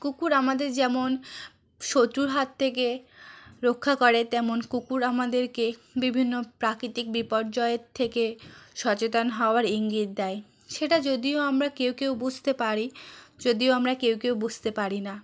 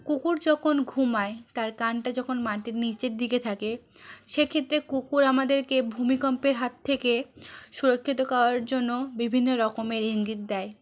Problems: none marked